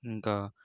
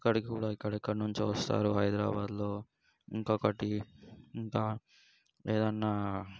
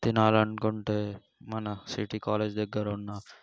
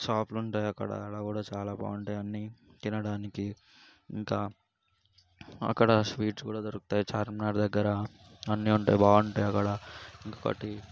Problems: background sounds at intervals